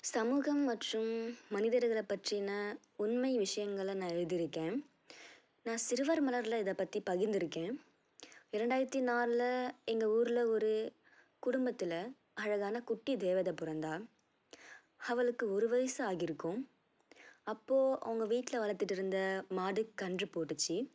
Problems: low volume